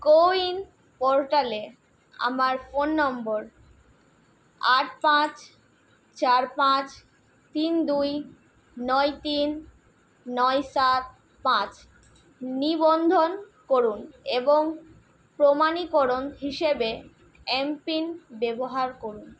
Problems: none marked